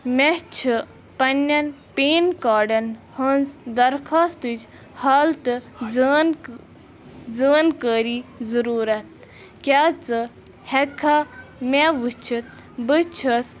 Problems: constant background noise